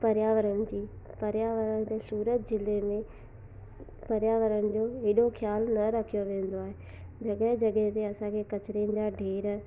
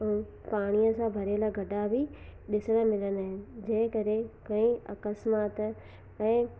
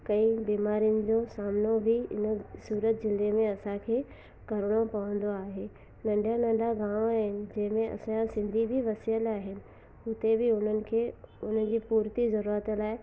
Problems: constant background noise, low volume